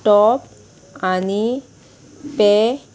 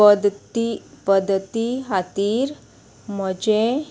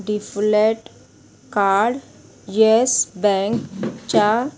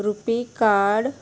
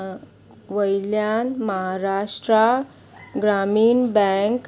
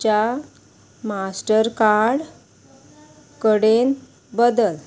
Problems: constant background noise